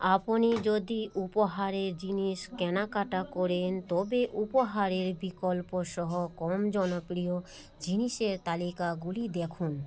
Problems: background sounds at intervals